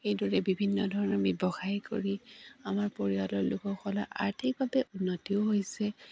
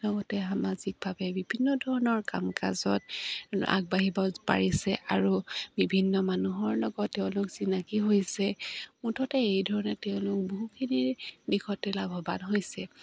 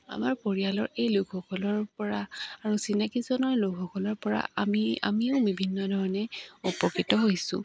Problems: none marked